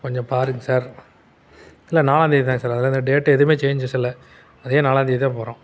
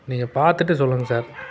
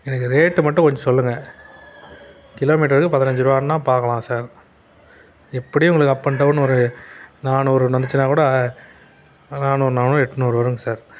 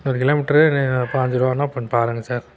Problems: none marked